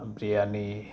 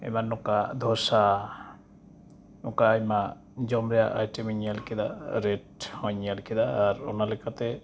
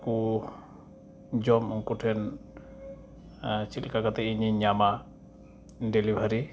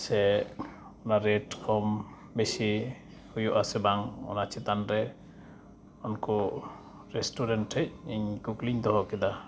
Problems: constant background noise